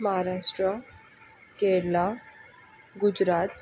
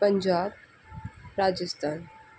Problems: constant background noise